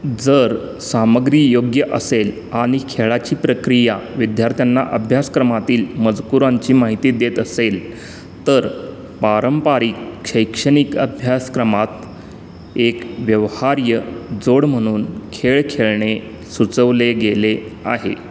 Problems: constant background noise